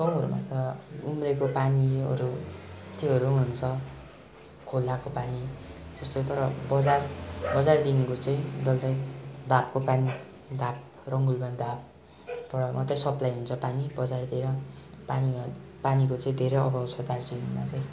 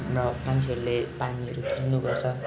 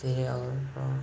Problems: constant background noise